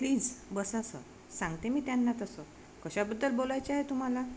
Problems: constant background noise